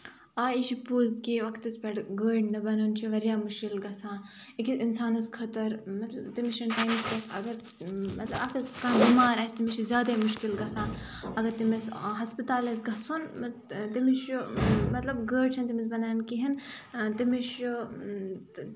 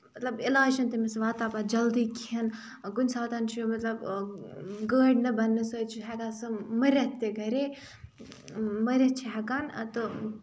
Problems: background sounds at intervals